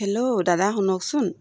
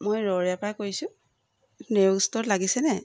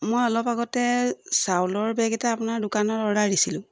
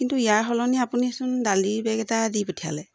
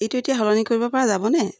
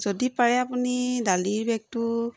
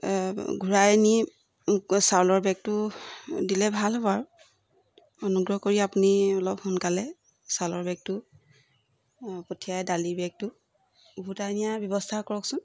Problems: background sounds at intervals